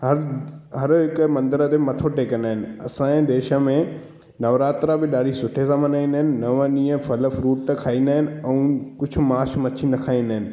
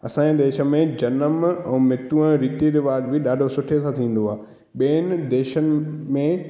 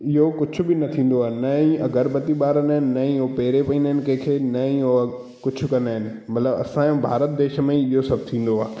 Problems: background sounds at intervals, echo